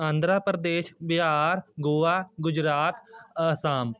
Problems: background conversations at intervals